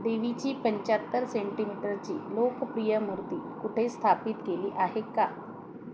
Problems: constant background noise